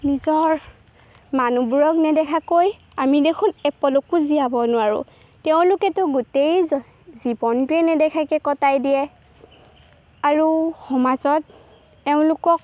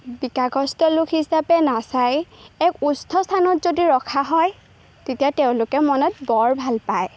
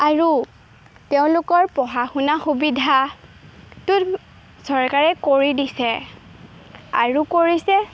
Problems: background sounds at intervals